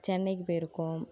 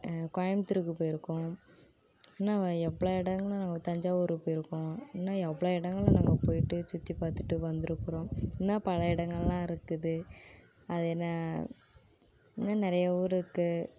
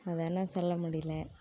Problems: constant background noise